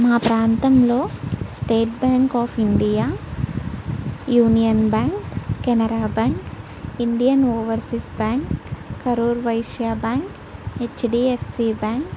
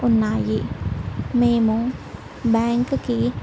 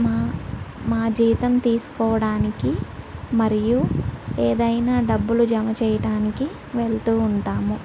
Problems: none marked